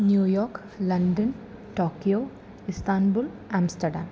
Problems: constant background noise, low volume